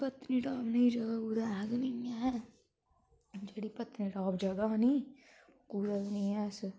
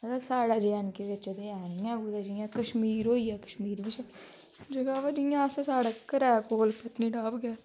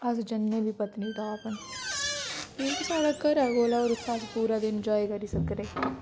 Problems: constant background noise